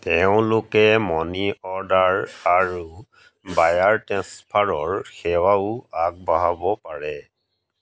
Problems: none marked